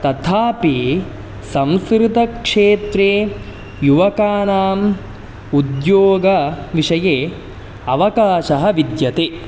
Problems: none marked